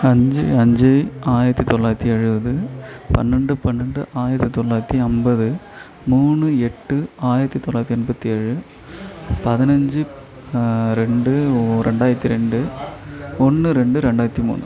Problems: continuous background conversations